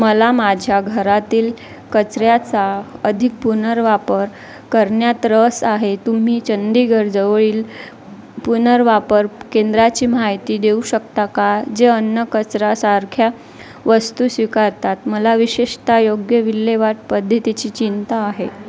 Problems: constant background noise, continuous background conversations